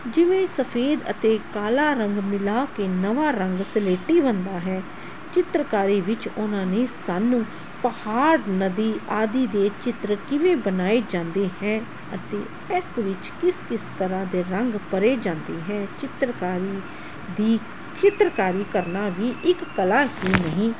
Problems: constant background noise